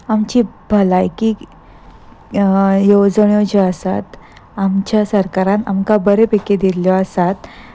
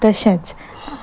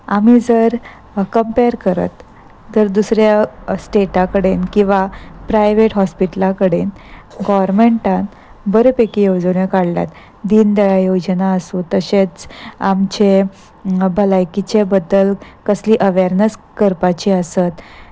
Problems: constant background noise